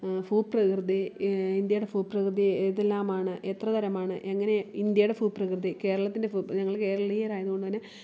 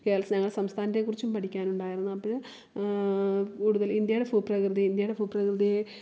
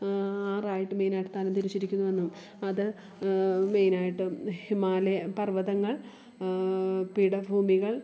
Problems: background sounds at intervals